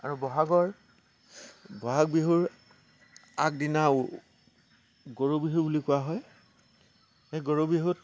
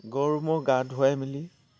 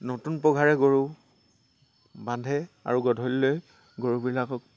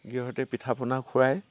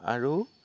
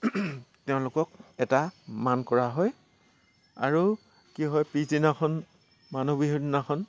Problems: constant background noise